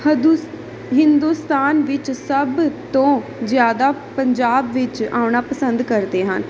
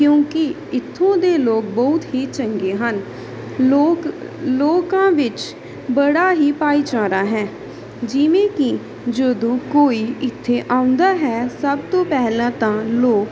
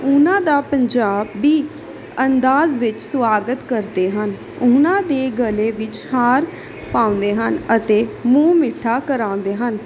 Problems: background sounds at intervals